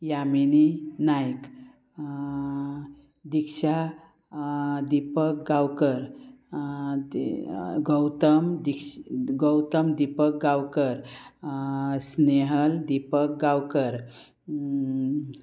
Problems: constant background noise, continuous background conversations